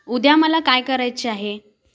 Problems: background sounds at intervals